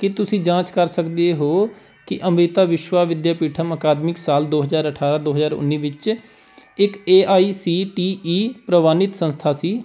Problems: background sounds at intervals